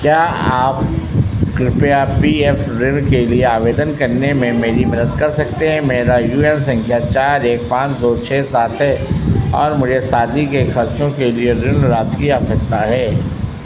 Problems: constant background noise